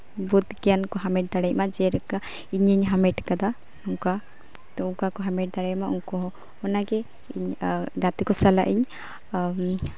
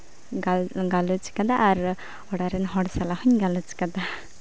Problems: background conversations at intervals